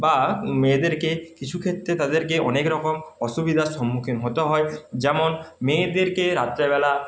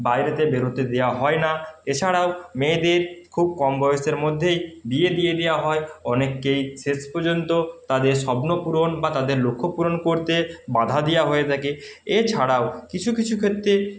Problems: constant background noise